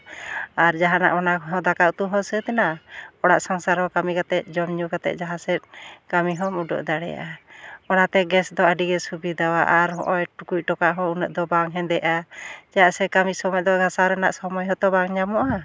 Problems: none marked